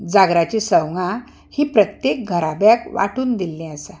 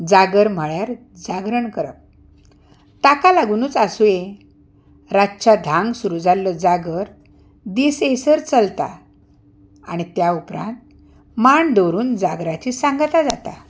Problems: none marked